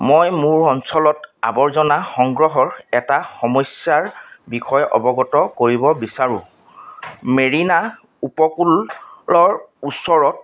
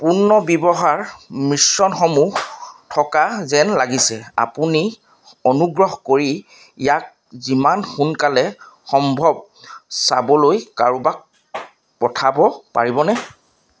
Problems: none marked